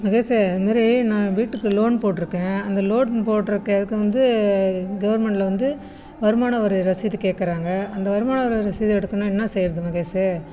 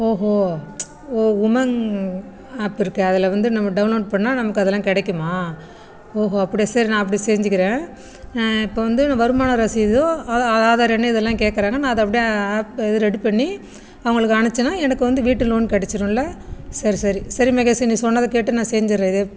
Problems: background sounds at intervals